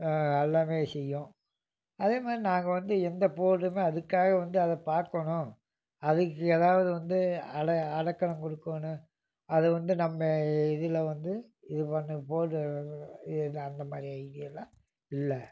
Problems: background sounds at intervals